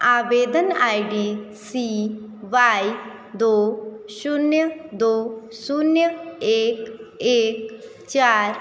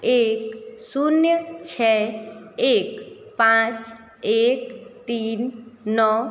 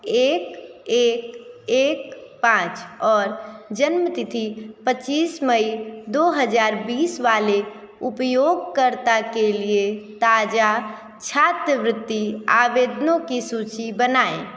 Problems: none marked